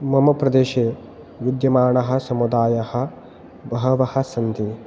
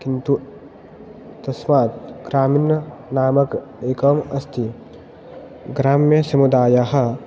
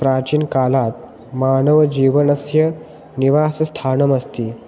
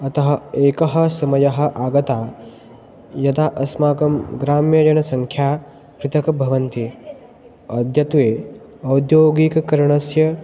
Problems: background sounds at intervals